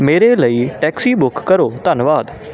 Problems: constant background noise